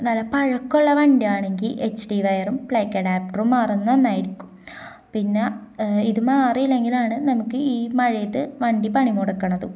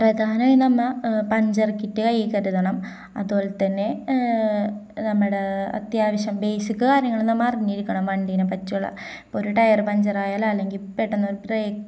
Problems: none marked